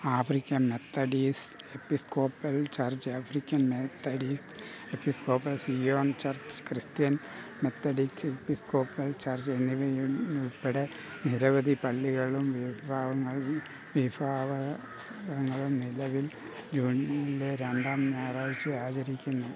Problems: constant background noise